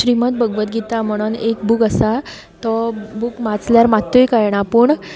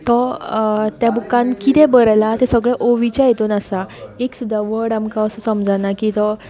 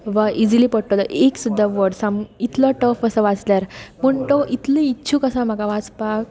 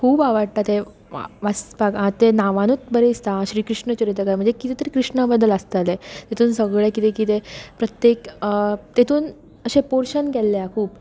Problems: continuous background conversations